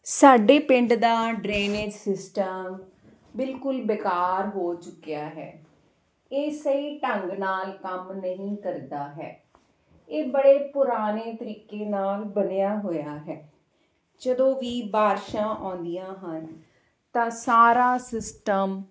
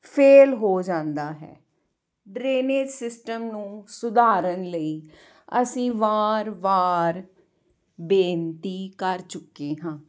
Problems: none marked